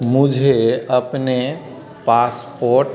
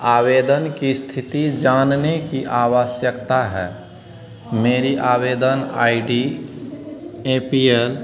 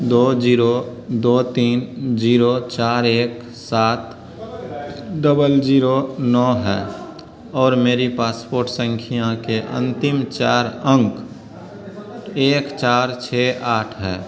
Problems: constant background noise